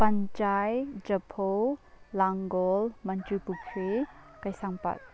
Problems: background sounds at intervals, low volume